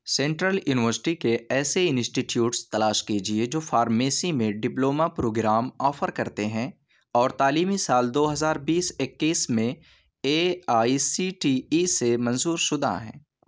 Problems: none marked